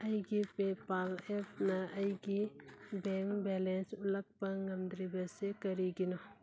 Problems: none marked